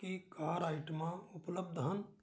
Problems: background sounds at intervals